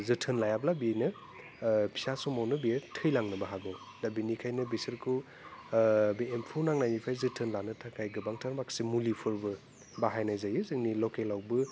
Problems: constant background noise